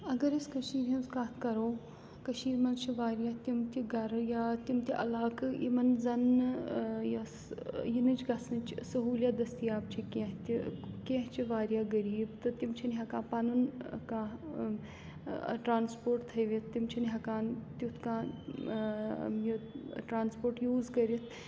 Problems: constant background noise